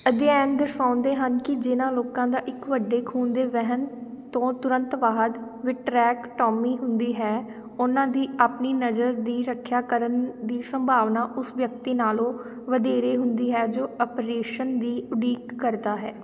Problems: background sounds at intervals